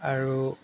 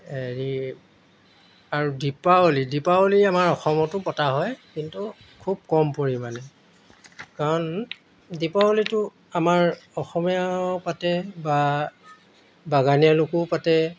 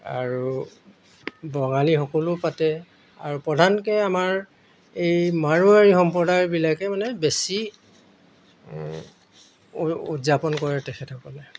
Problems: background sounds at intervals